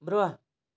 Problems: none marked